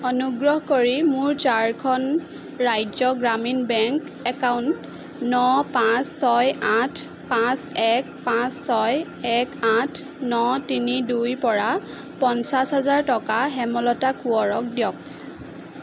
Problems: constant background noise